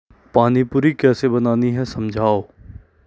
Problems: constant background noise